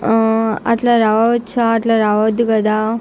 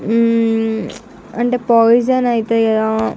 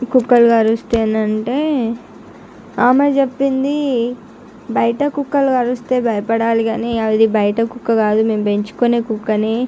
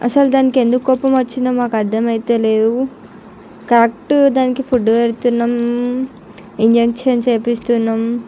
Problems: none marked